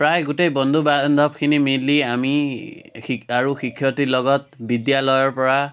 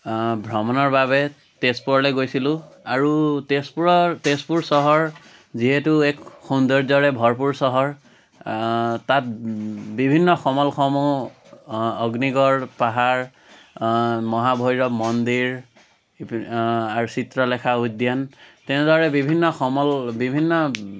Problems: none marked